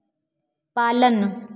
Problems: echo